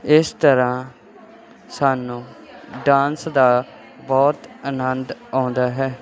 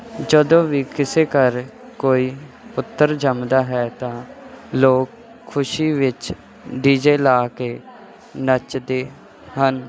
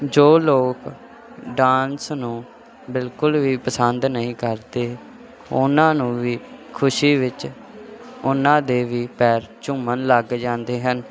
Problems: none marked